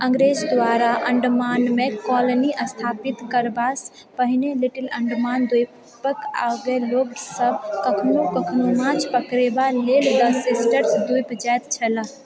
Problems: continuous background conversations